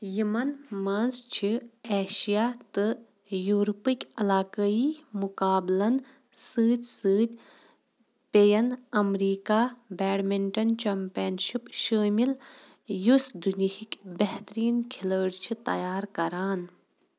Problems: constant background noise